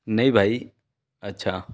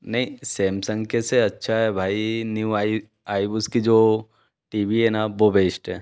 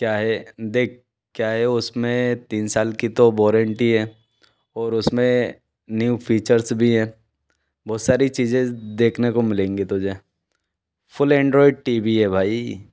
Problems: background sounds at intervals